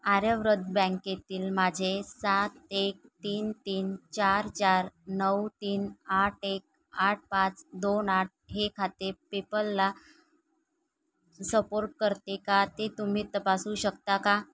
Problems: background sounds at intervals